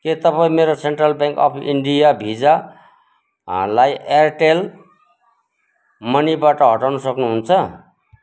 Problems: constant background noise